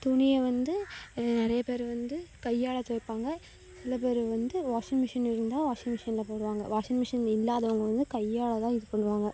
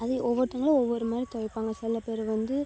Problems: low volume